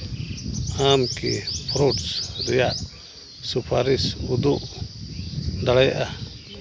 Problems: constant background noise